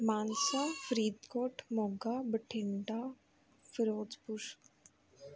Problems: background conversations at intervals